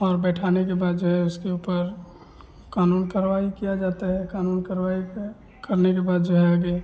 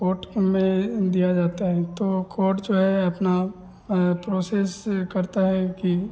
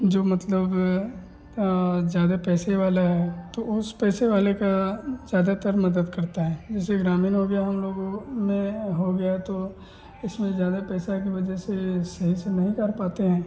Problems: none marked